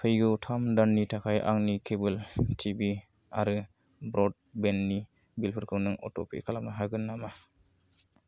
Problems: none marked